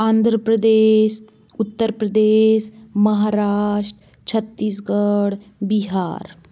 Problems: constant background noise